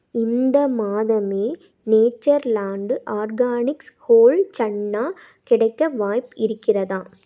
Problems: none marked